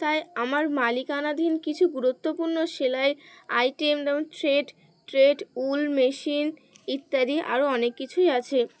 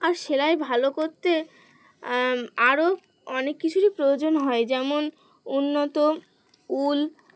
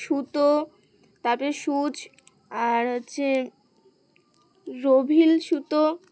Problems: background sounds at intervals